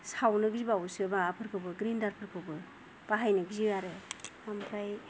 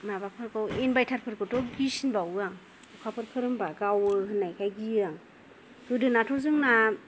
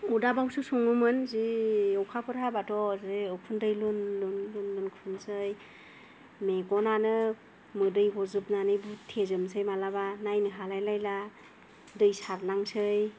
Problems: low volume